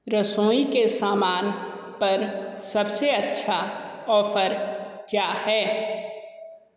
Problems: echo